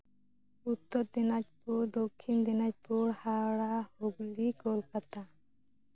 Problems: none marked